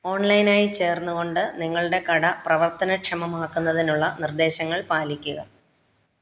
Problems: none marked